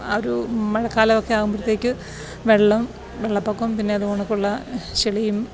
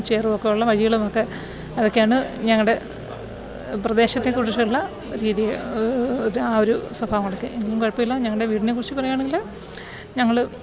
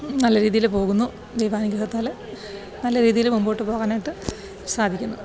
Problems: background sounds at intervals